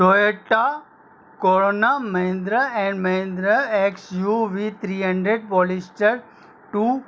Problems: constant background noise